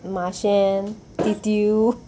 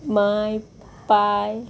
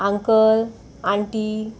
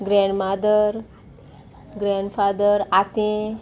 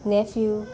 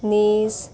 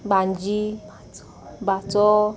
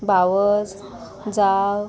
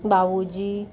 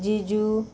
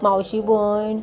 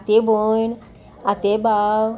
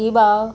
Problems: constant background noise